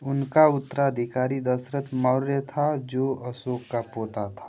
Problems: constant background noise